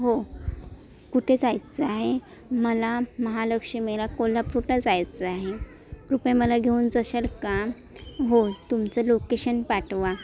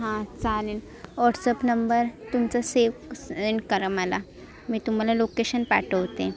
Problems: constant background noise, continuous background conversations